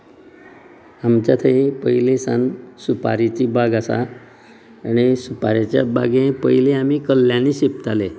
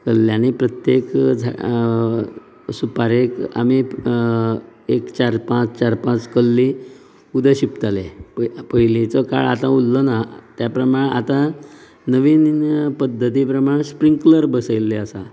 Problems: low volume